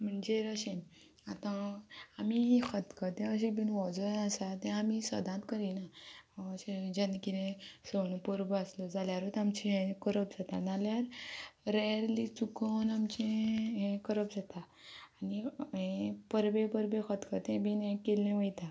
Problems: low volume